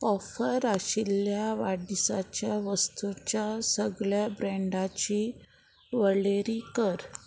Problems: none marked